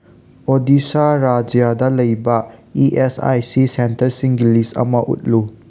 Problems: none marked